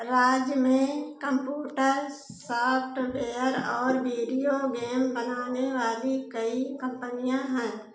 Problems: constant background noise